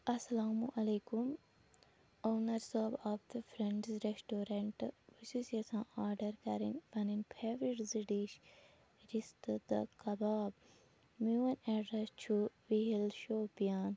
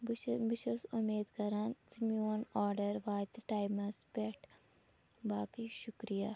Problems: constant background noise